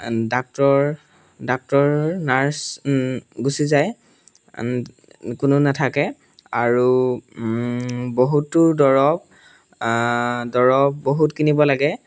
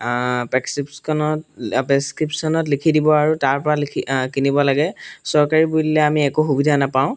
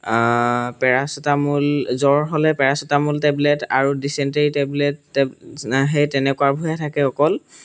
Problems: background sounds at intervals